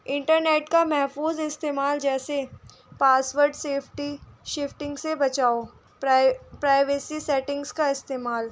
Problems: constant background noise